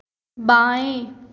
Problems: echo